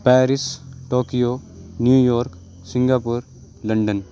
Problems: constant background noise